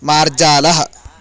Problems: constant background noise, continuous background conversations